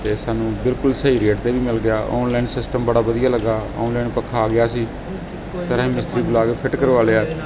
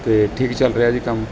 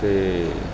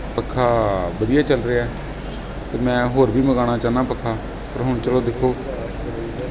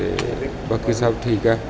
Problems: background sounds at intervals